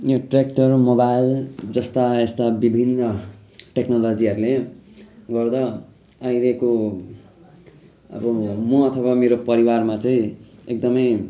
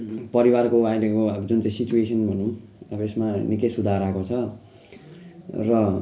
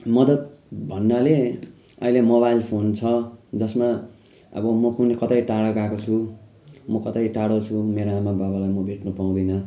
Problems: constant background noise